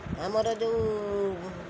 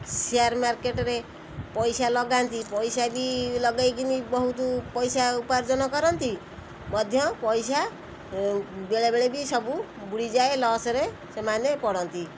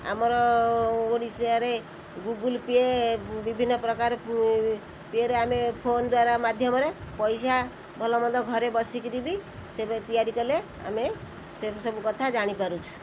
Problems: constant background noise